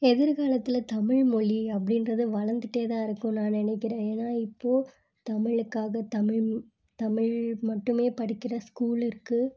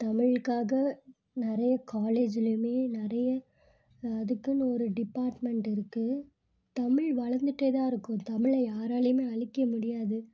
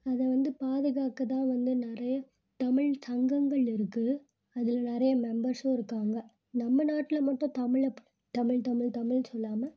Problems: none marked